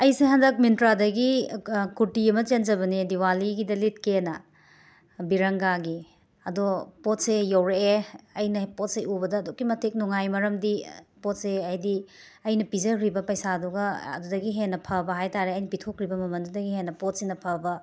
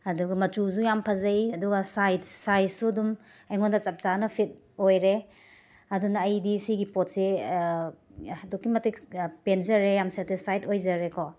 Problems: background sounds at intervals